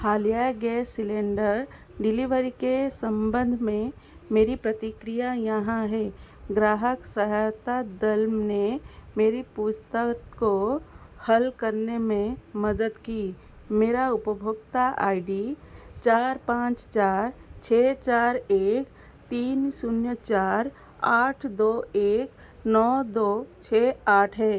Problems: none marked